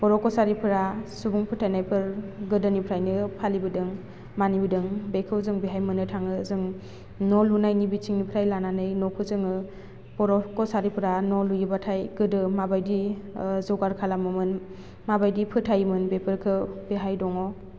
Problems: none marked